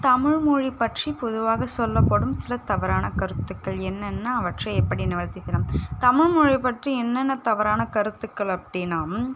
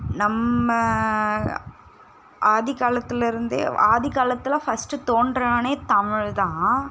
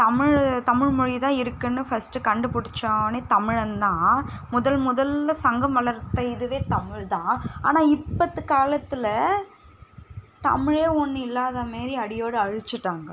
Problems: background sounds at intervals